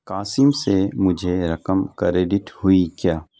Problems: none marked